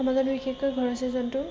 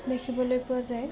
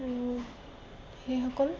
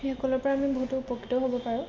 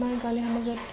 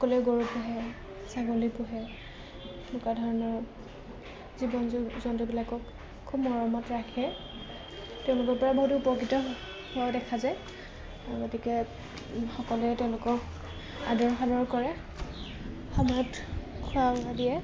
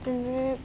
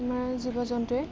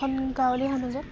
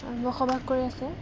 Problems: constant background noise